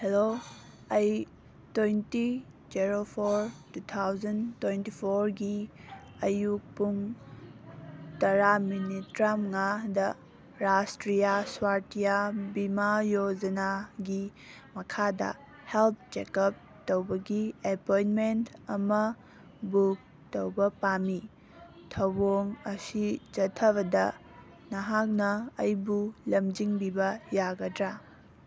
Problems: background conversations at intervals